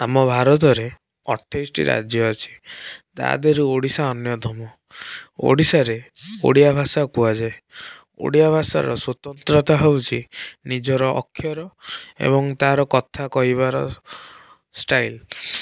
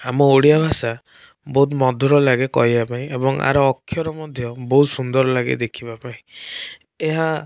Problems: background sounds at intervals